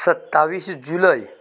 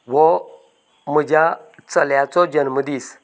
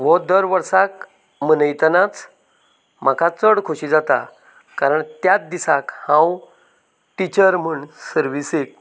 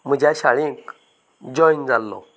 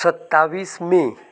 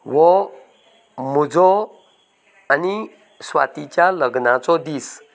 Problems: background conversations at intervals